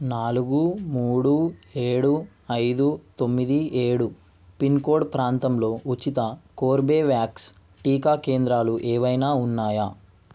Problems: none marked